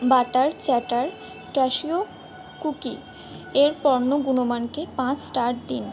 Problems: background sounds at intervals